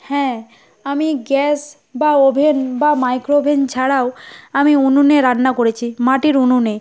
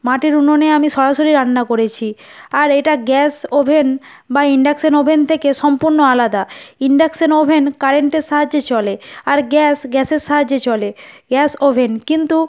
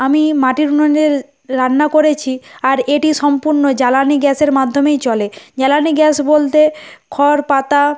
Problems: none marked